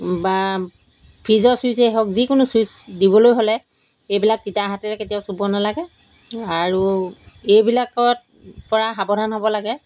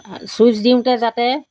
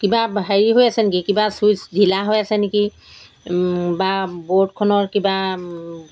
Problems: background sounds at intervals